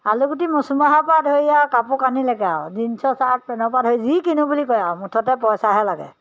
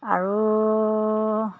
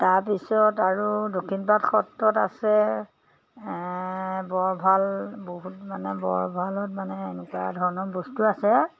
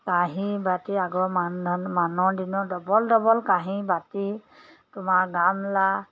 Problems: background sounds at intervals